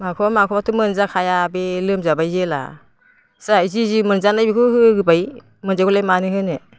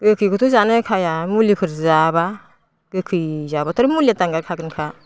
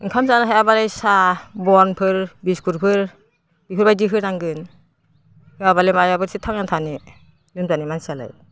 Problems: constant background noise